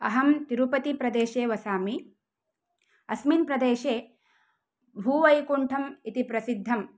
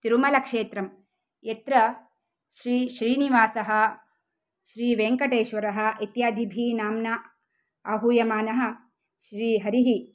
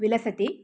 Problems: none marked